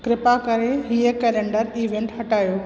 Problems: constant background noise, echo